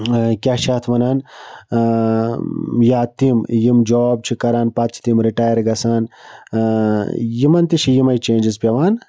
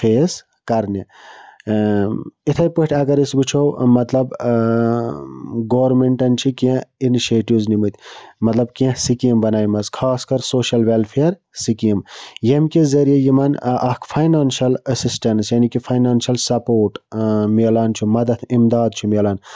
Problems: none marked